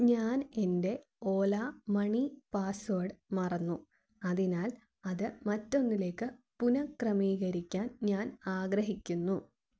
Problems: low volume